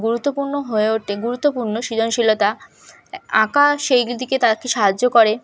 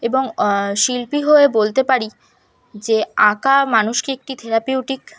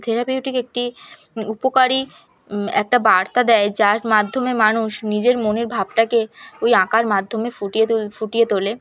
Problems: background sounds at intervals, background conversations at intervals